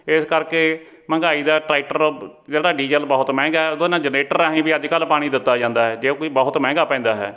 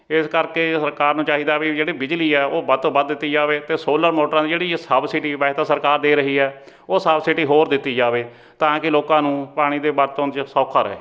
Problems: background sounds at intervals